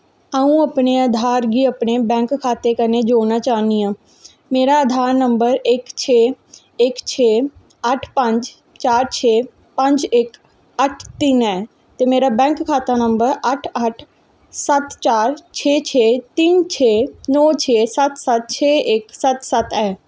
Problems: echo